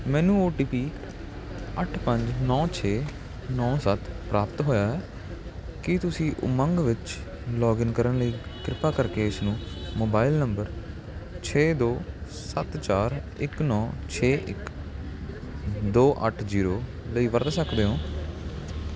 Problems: constant background noise